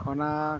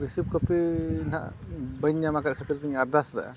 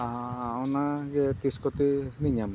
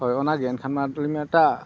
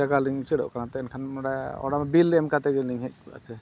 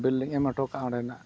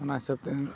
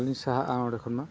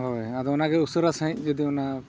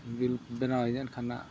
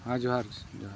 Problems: constant background noise, low volume